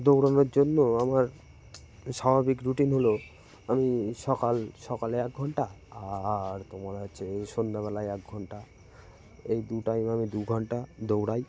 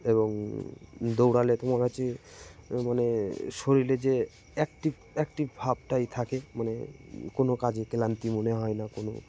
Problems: constant background noise, background conversations at intervals